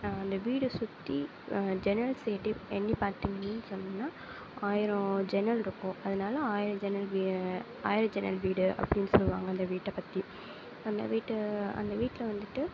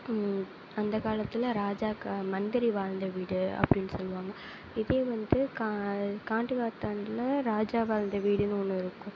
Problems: low volume